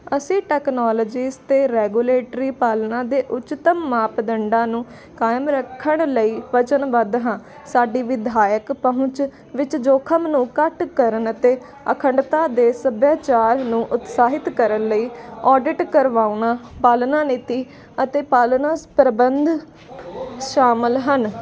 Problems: constant background noise